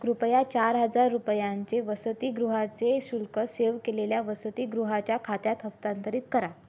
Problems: none marked